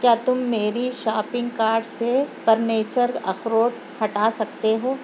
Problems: constant background noise